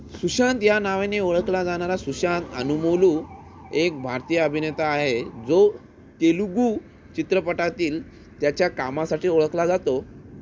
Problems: constant background noise